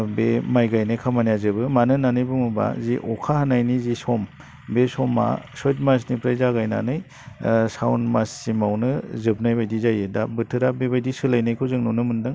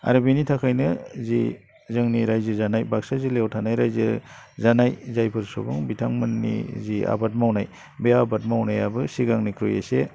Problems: none marked